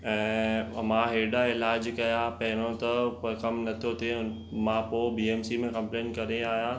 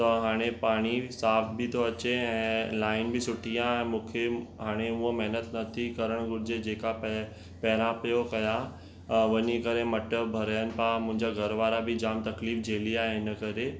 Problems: constant background noise